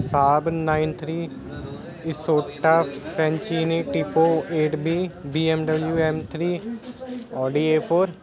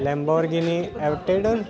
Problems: continuous background conversations